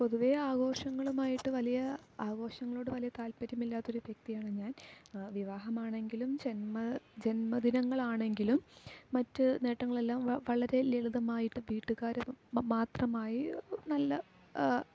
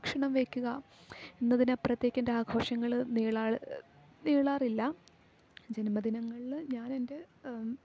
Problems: low volume